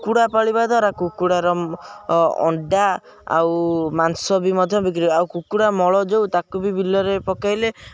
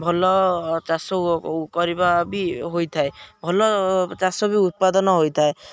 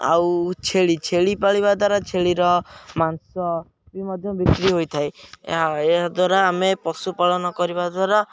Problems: background sounds at intervals